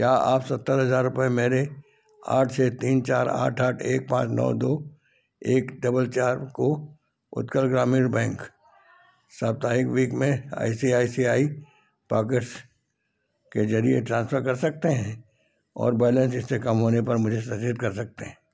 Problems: background sounds at intervals